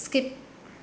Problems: constant background noise